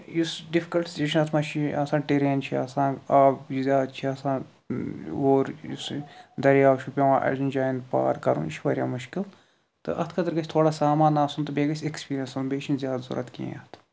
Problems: none marked